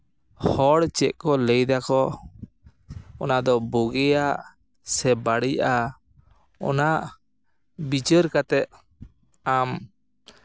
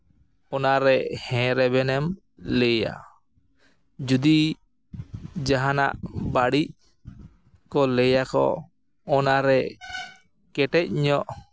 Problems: echo